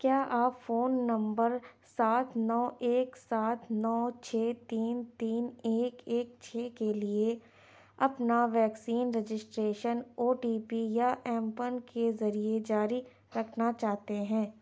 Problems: none marked